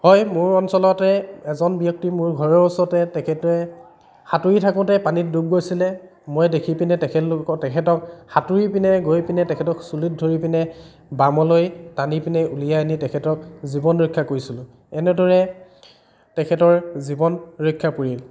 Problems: none marked